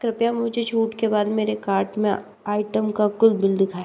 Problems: background sounds at intervals